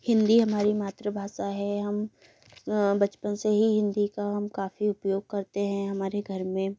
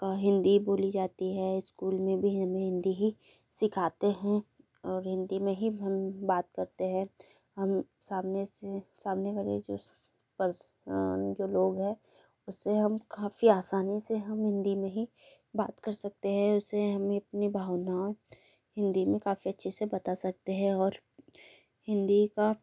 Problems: none marked